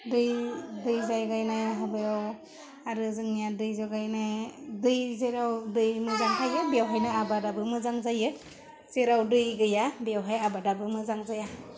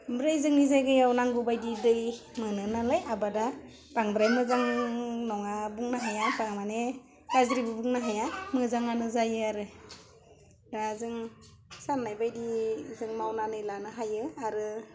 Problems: low volume